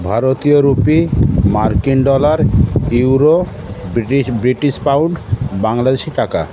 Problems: constant background noise, continuous background conversations